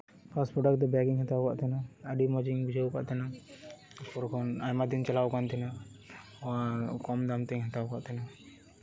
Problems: constant background noise, background conversations at intervals